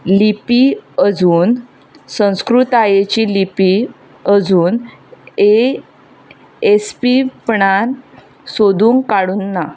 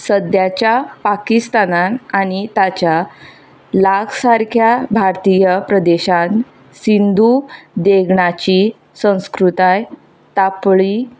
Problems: constant background noise